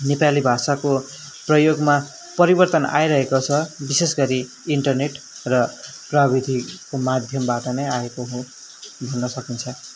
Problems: background sounds at intervals